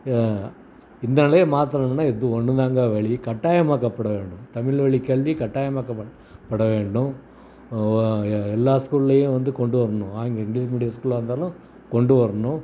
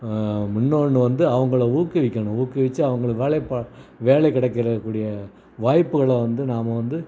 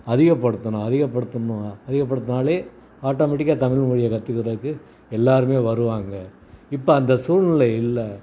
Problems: background sounds at intervals, background conversations at intervals